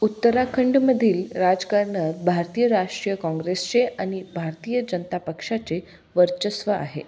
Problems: background sounds at intervals